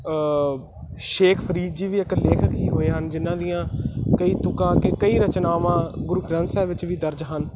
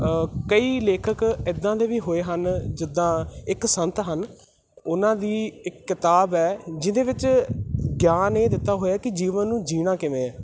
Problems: constant background noise